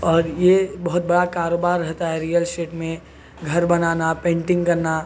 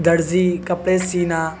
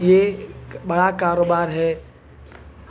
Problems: constant background noise, background conversations at intervals